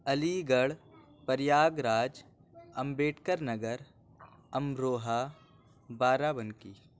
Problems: none marked